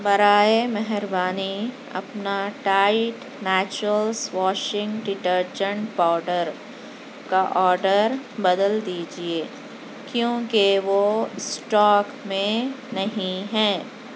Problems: constant background noise